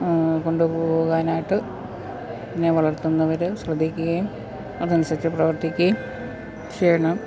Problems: constant background noise